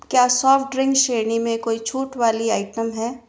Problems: none marked